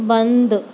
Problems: constant background noise